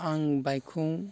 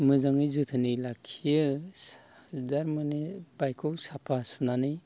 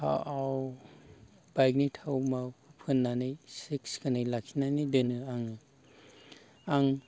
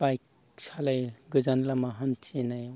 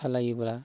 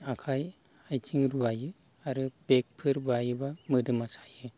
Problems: none marked